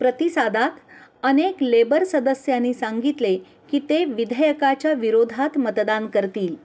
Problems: background sounds at intervals, low volume